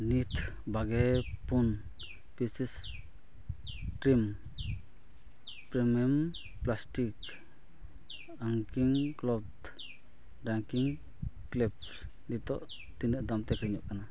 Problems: background sounds at intervals, low volume